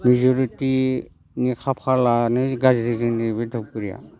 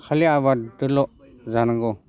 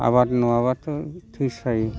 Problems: constant background noise